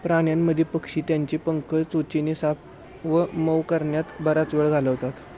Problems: constant background noise, background conversations at intervals